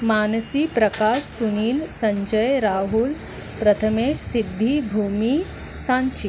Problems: none marked